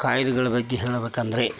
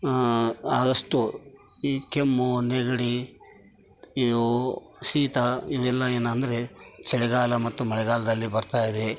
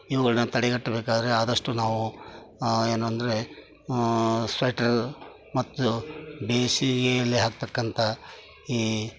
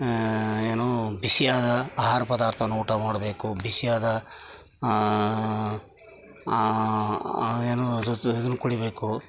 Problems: background sounds at intervals